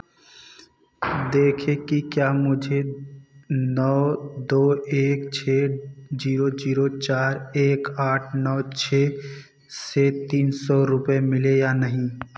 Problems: background sounds at intervals